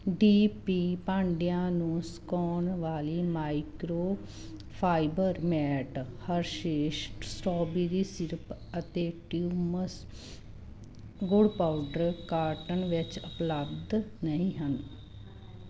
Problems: none marked